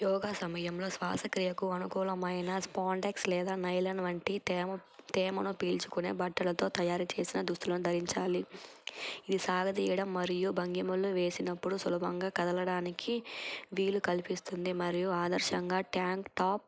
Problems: constant background noise